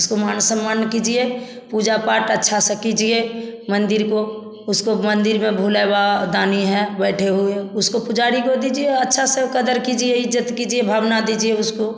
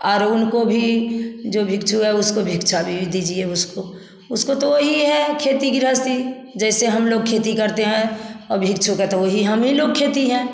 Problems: constant background noise, background conversations at intervals, echo